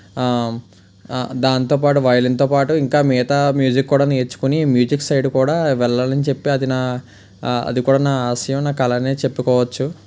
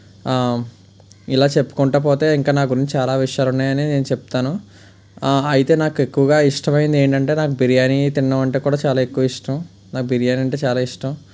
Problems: constant background noise